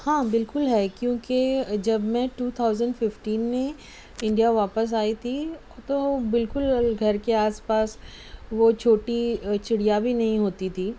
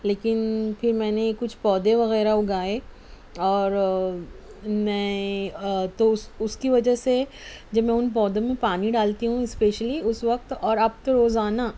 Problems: none marked